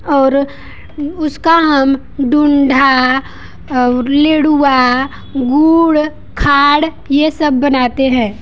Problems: constant background noise